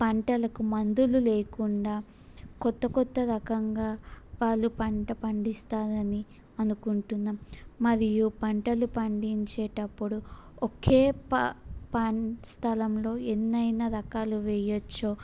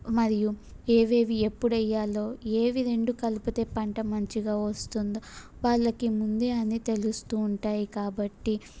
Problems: none marked